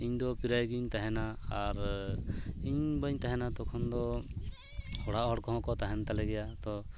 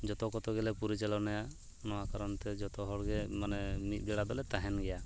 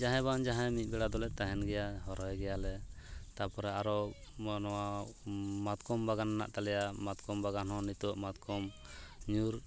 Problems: none marked